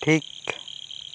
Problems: constant background noise